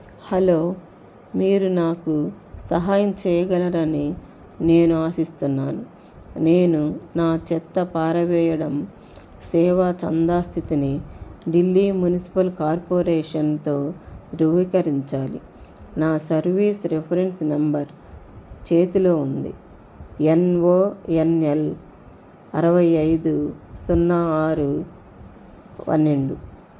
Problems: constant background noise